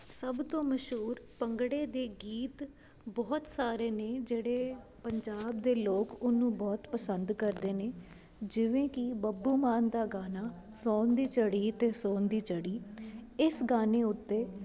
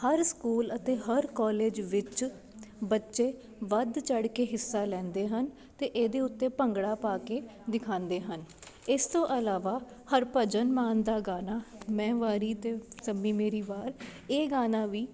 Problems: background sounds at intervals, background conversations at intervals